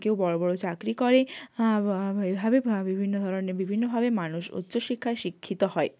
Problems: none marked